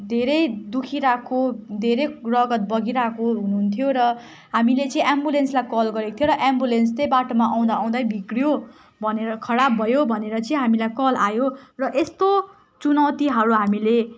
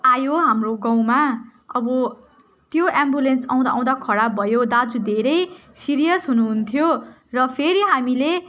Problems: constant background noise, continuous background conversations